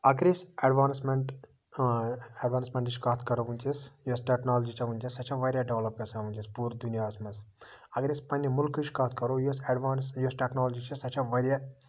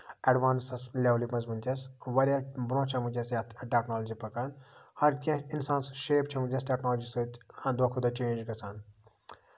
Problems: background sounds at intervals